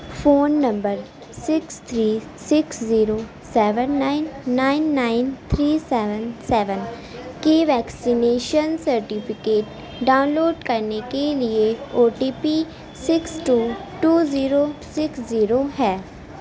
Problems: background sounds at intervals, background conversations at intervals